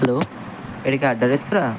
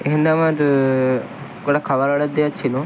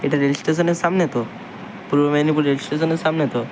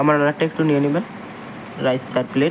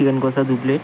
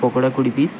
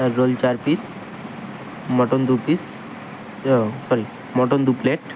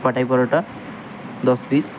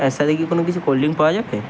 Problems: constant background noise